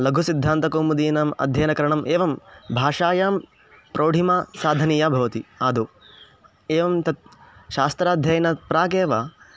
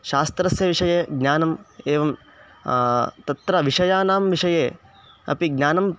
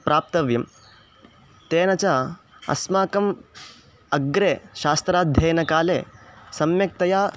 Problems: none marked